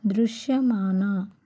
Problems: none marked